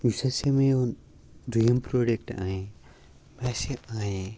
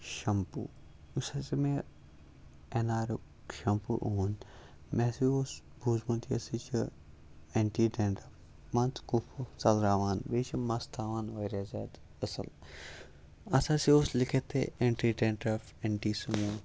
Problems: background sounds at intervals